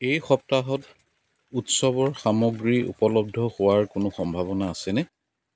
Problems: background sounds at intervals